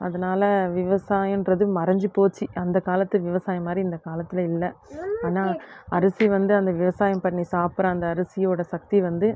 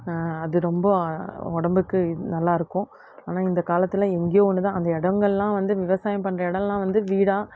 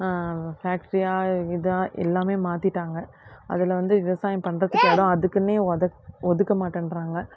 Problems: constant background noise